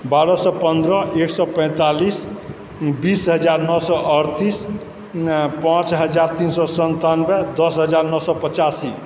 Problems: background sounds at intervals